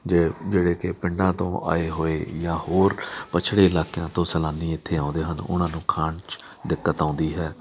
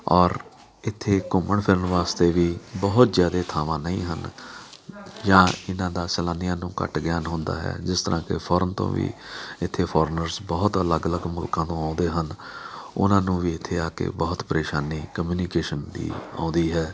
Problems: background sounds at intervals, background conversations at intervals